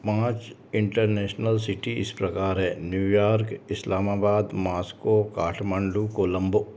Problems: constant background noise